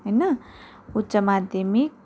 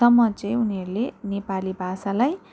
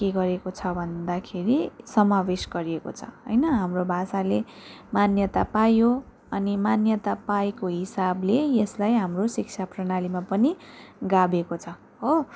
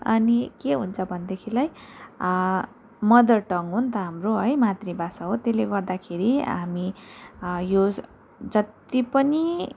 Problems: none marked